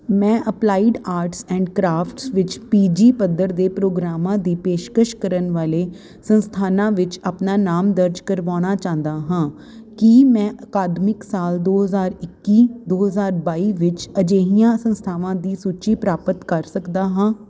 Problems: none marked